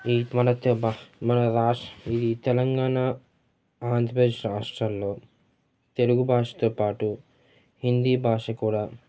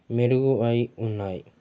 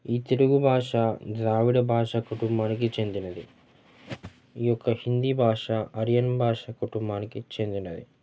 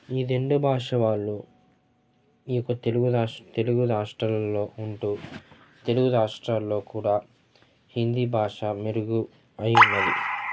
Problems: constant background noise, continuous background conversations